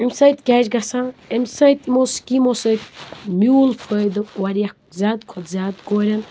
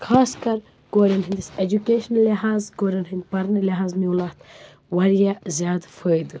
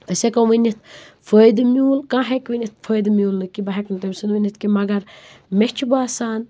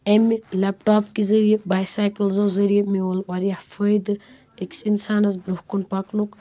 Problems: constant background noise